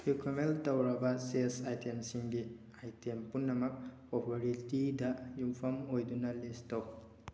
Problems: constant background noise